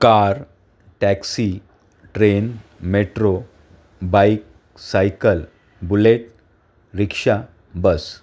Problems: background sounds at intervals